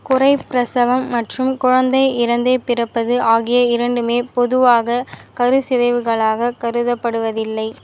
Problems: constant background noise